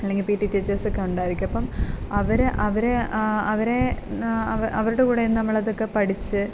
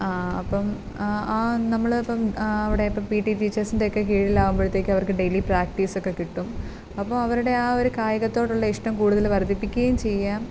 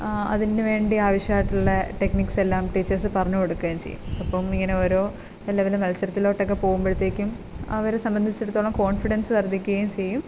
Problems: none marked